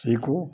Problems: background sounds at intervals